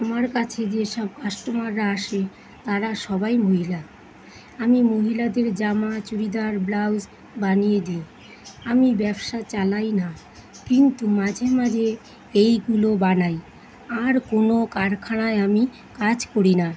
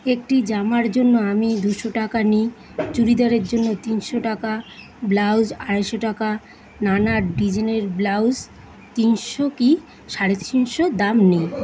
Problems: constant background noise